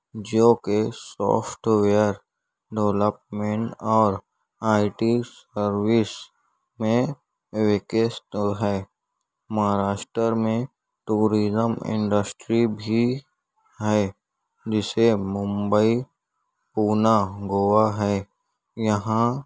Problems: none marked